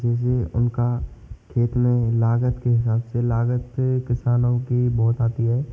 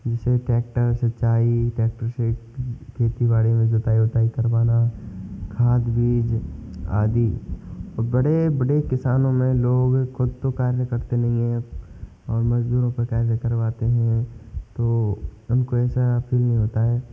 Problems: constant background noise